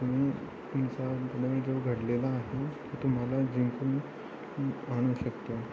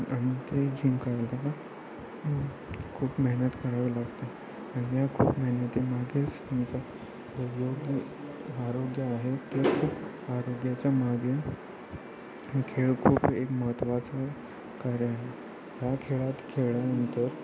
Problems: constant background noise, continuous background conversations